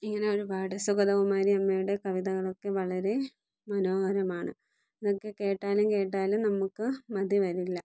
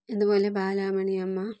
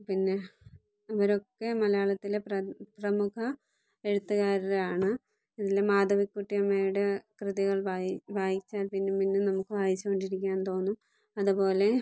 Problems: low volume